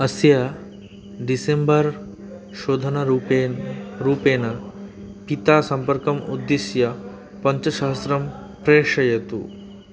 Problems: background sounds at intervals